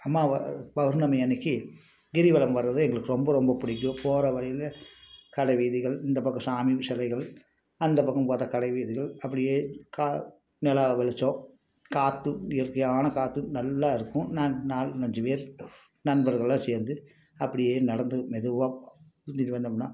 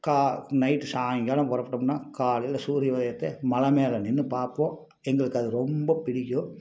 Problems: none marked